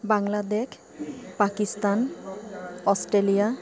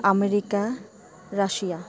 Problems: constant background noise, continuous background conversations